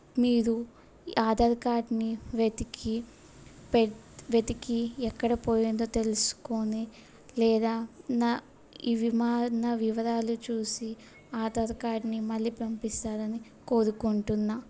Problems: background sounds at intervals